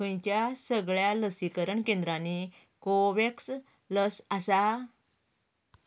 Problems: background sounds at intervals